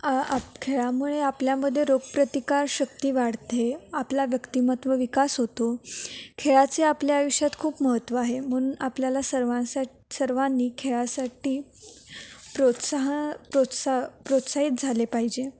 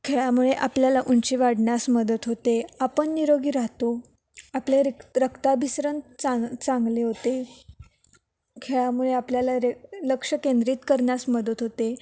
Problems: none marked